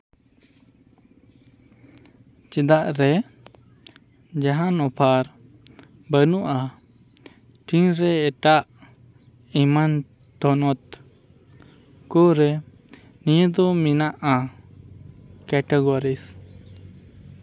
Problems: constant background noise